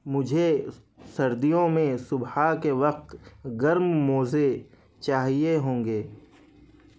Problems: none marked